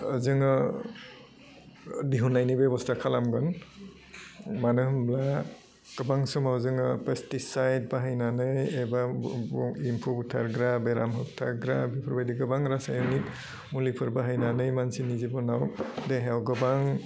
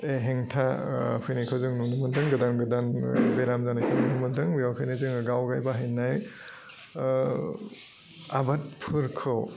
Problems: low volume